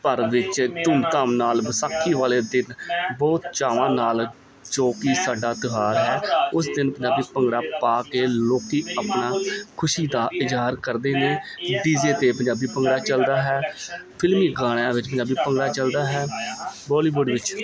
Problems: background sounds at intervals, continuous background conversations